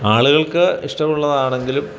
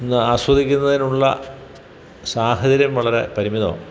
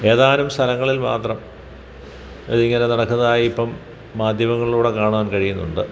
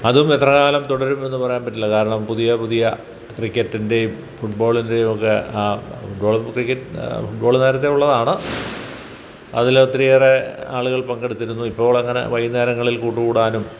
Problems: background sounds at intervals